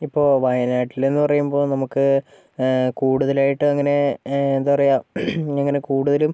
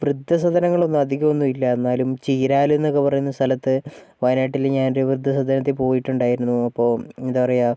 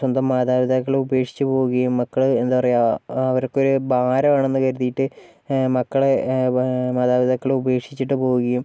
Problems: none marked